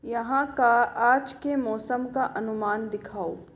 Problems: echo